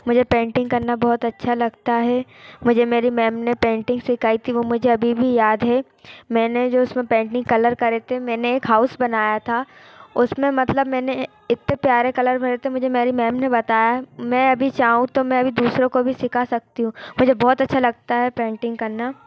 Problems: constant background noise, continuous background conversations